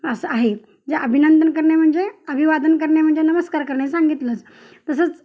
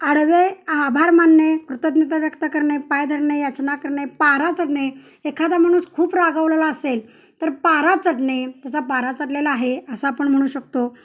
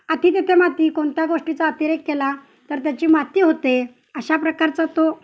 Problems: constant background noise